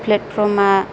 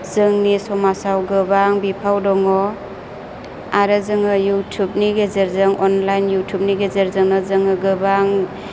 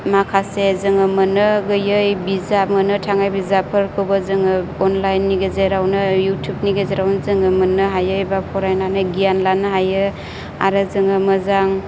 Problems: low volume